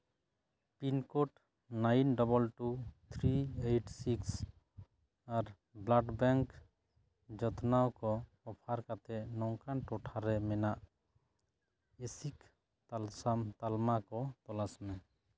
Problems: none marked